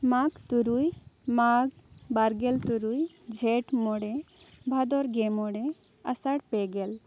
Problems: none marked